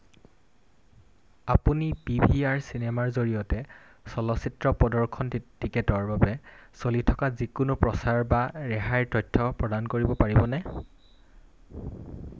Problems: none marked